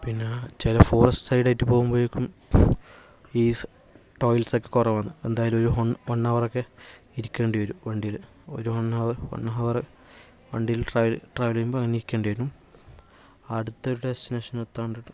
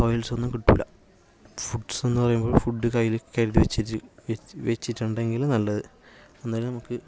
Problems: low volume